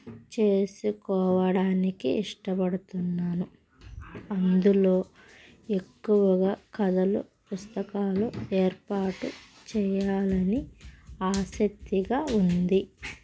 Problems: none marked